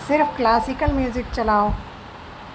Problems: constant background noise